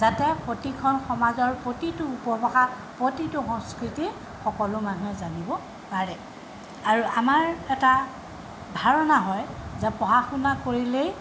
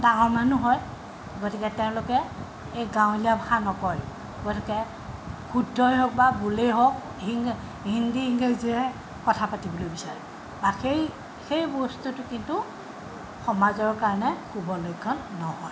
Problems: background sounds at intervals